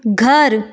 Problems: background sounds at intervals